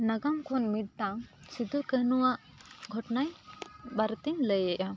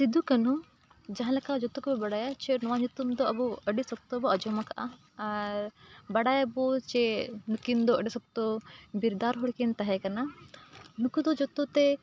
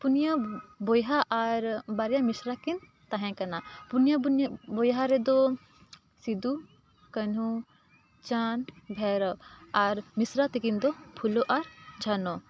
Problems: background conversations at intervals